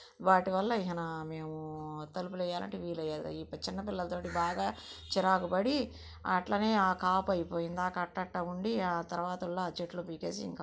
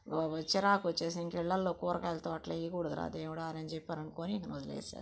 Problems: low volume